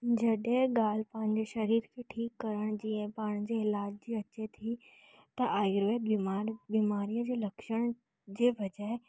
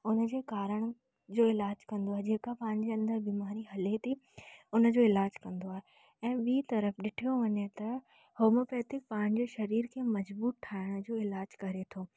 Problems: none marked